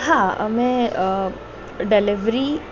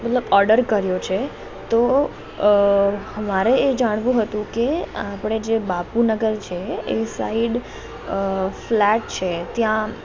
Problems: constant background noise